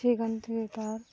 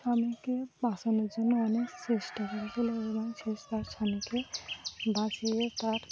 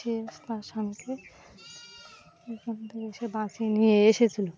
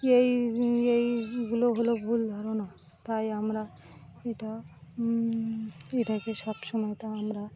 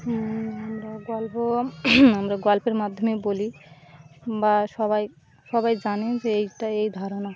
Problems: constant background noise, background conversations at intervals